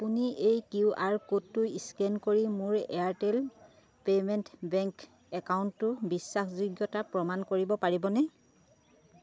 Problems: none marked